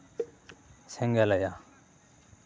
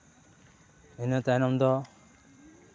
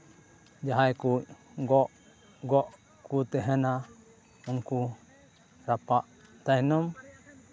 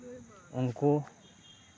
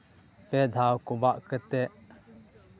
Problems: none marked